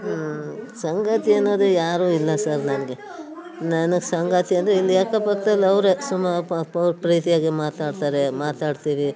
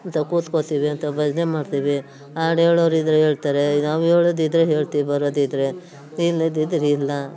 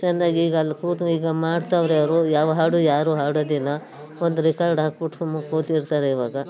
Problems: background sounds at intervals